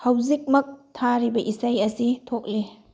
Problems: low volume